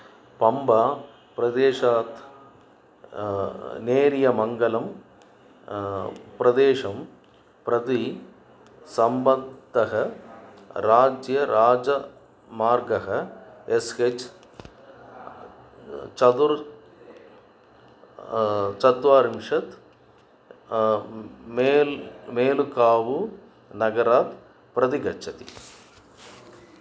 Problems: background sounds at intervals